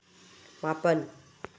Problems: low volume